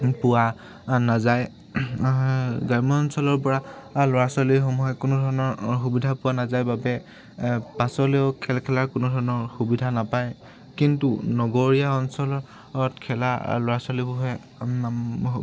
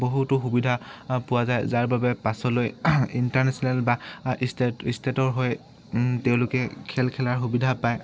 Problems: background sounds at intervals